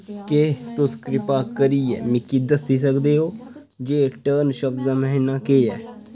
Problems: constant background noise, background conversations at intervals